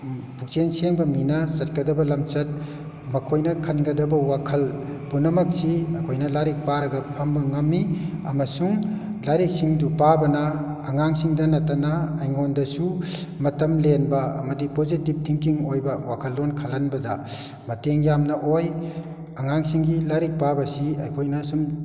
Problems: background sounds at intervals